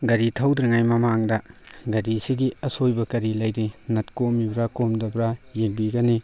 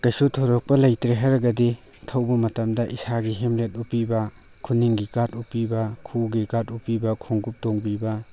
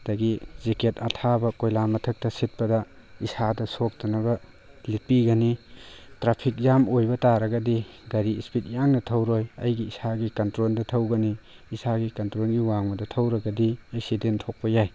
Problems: none marked